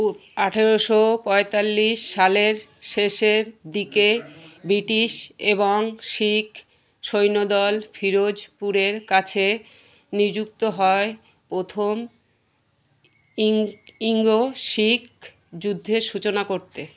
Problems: constant background noise